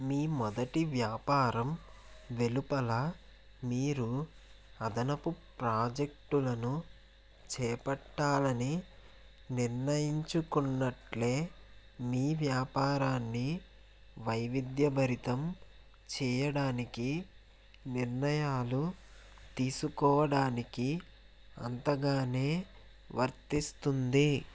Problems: constant background noise